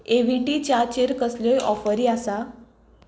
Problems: background sounds at intervals